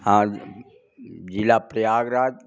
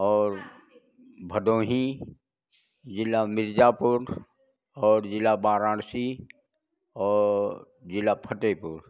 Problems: none marked